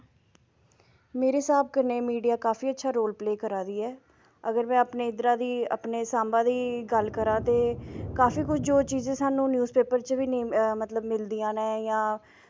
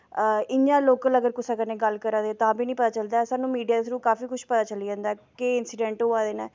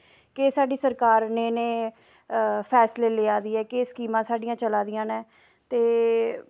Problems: none marked